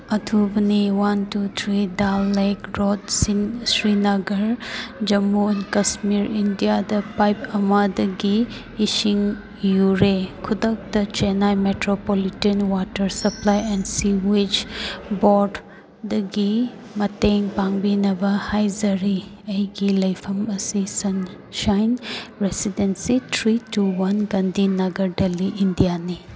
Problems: background conversations at intervals